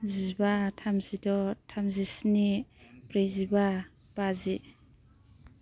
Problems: none marked